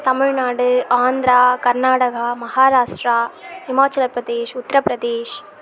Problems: none marked